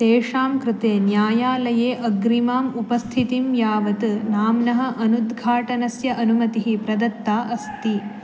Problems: background sounds at intervals